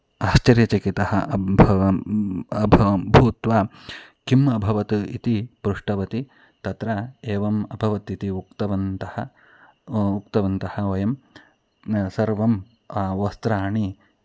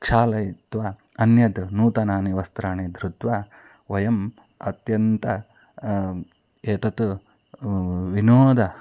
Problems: background sounds at intervals